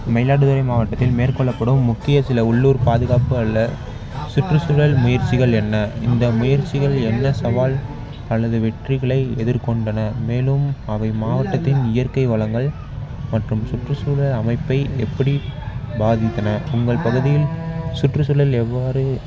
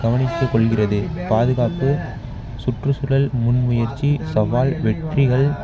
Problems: background sounds at intervals, background conversations at intervals